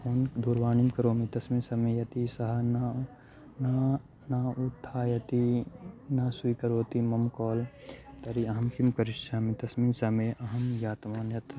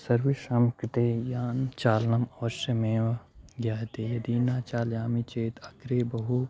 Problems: background sounds at intervals